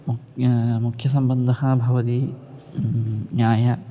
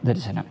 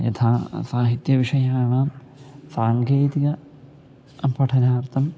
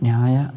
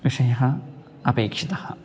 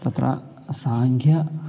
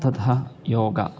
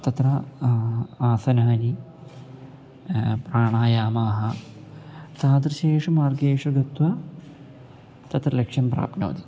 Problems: none marked